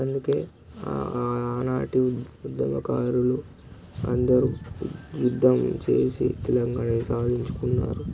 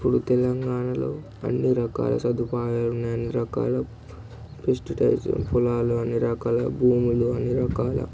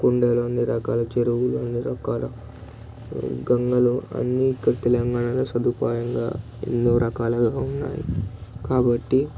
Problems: none marked